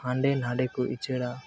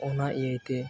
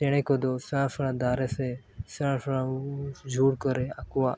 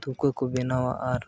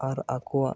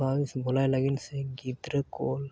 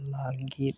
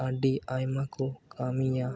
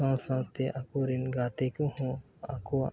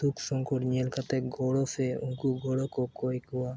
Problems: background sounds at intervals